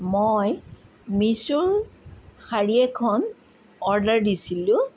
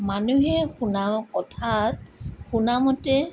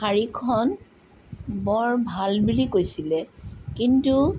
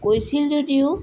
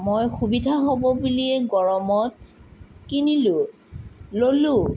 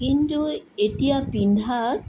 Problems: none marked